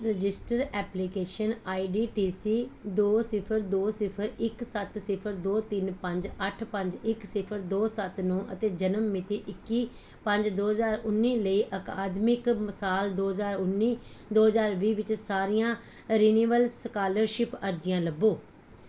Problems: background sounds at intervals